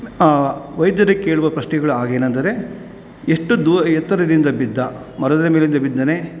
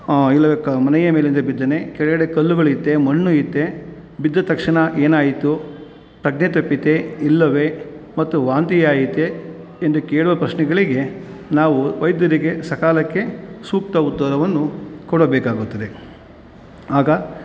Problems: none marked